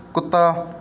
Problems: background sounds at intervals